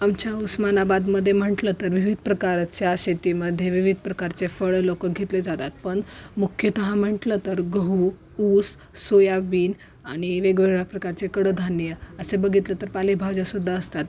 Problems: none marked